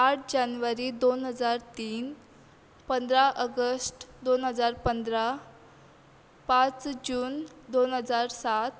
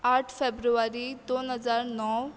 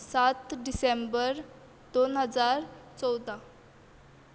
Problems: constant background noise